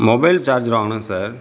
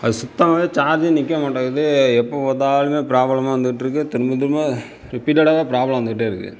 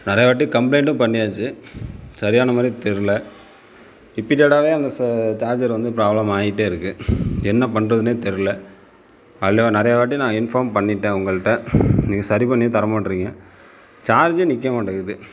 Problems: background sounds at intervals